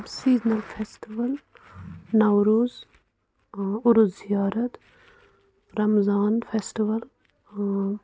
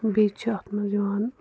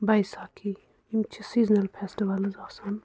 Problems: background sounds at intervals